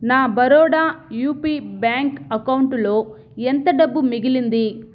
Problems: constant background noise